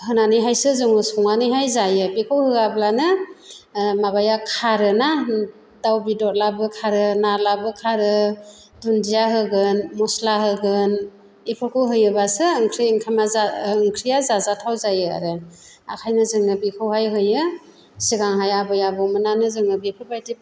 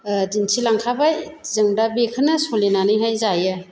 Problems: none marked